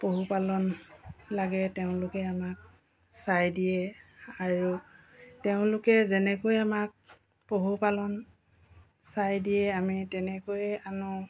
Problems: background sounds at intervals